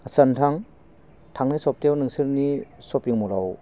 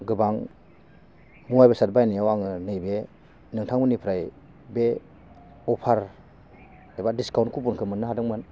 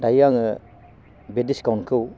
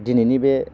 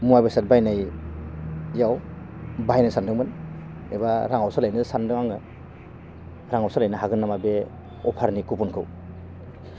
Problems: low volume